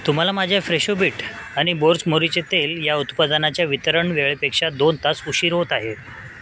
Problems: constant background noise